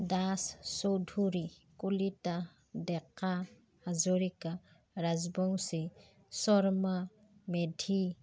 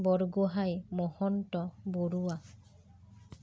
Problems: none marked